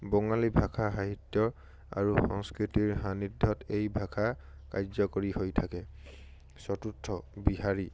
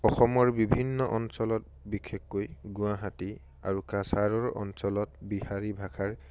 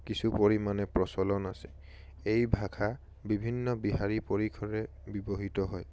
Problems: none marked